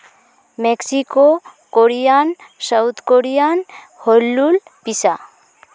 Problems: background sounds at intervals, continuous background conversations